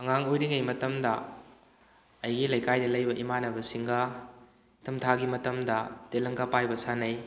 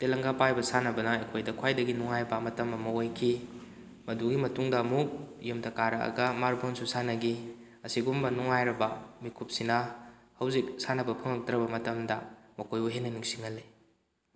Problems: none marked